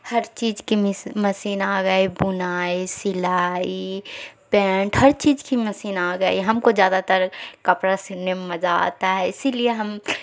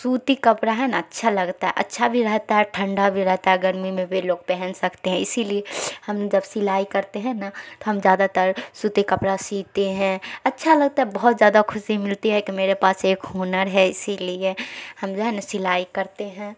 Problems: none marked